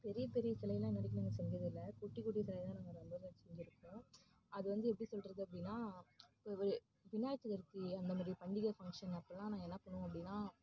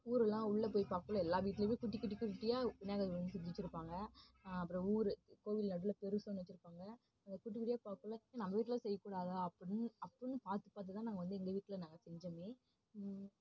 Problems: low volume